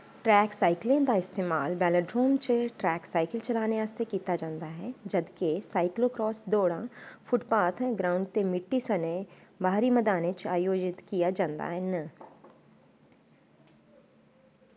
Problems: constant background noise